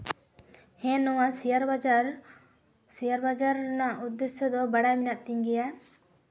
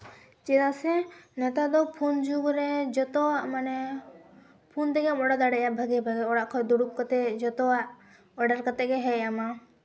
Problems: background sounds at intervals